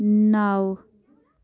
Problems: background sounds at intervals